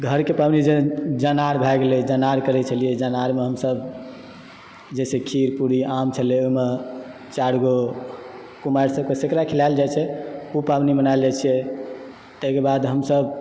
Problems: none marked